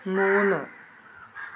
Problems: constant background noise, low volume